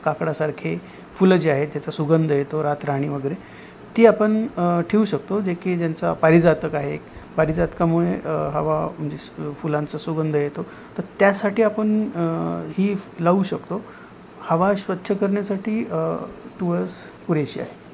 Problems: constant background noise